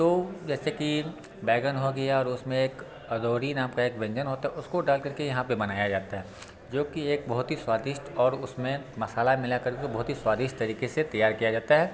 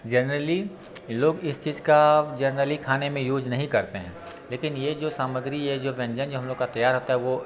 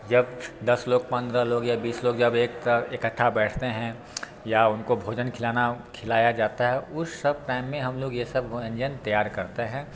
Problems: constant background noise, background conversations at intervals